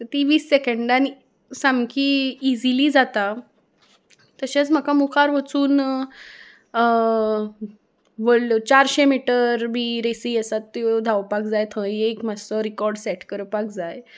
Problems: background sounds at intervals